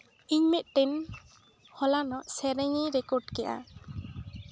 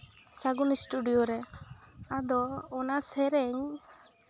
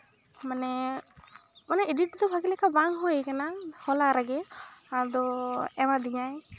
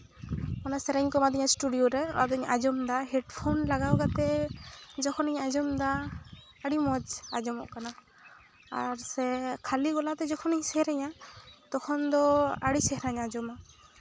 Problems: background sounds at intervals